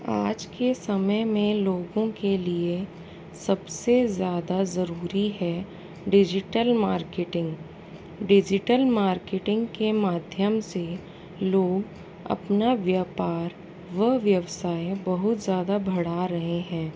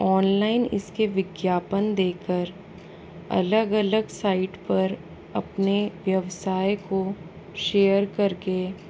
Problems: constant background noise